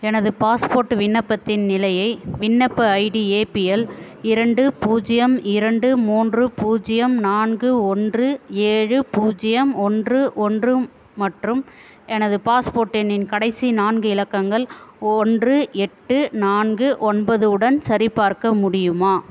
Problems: constant background noise